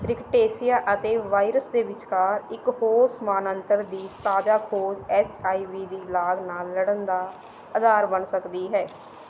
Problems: background sounds at intervals